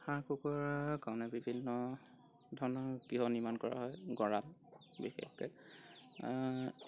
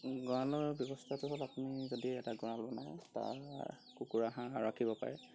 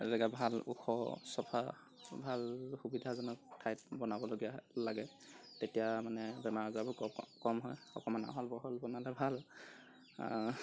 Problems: background conversations at intervals